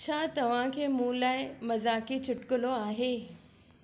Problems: none marked